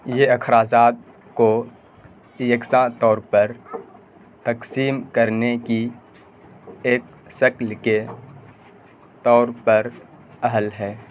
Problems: constant background noise